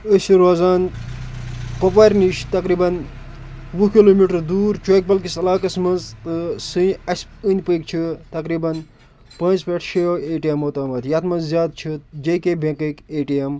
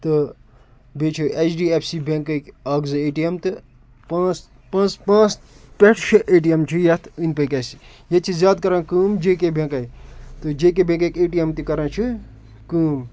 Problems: constant background noise